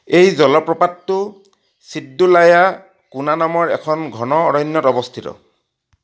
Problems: none marked